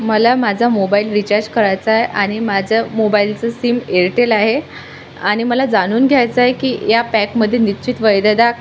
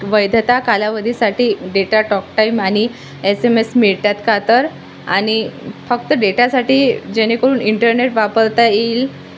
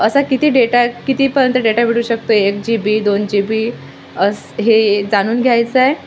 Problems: constant background noise